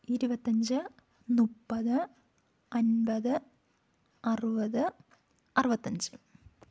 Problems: low volume